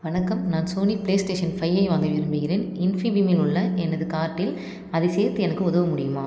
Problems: none marked